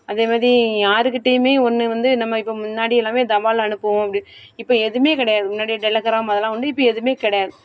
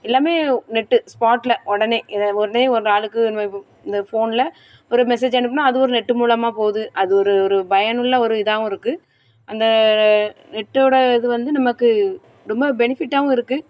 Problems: background sounds at intervals